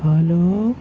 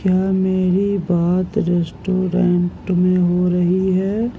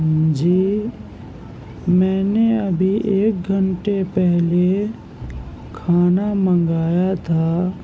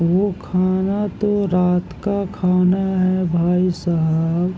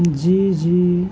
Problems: constant background noise, low volume